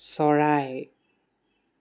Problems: constant background noise